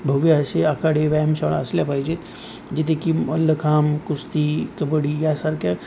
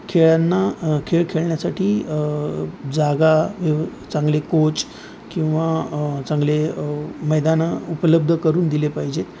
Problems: none marked